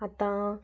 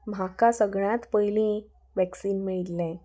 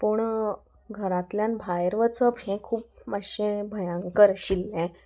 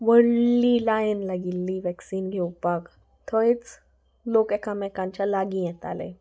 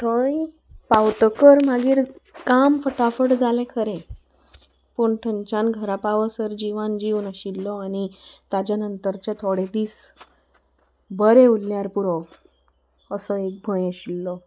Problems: background sounds at intervals